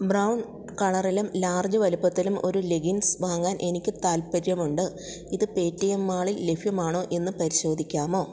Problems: none marked